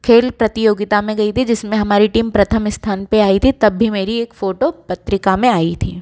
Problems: background sounds at intervals